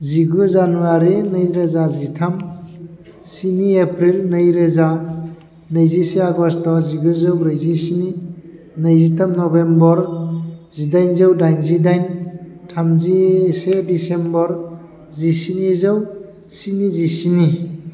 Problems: constant background noise